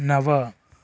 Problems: none marked